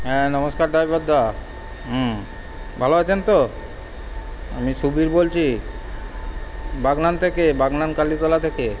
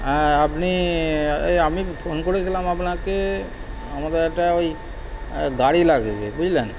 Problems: constant background noise